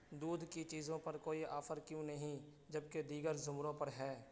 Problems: constant background noise, low volume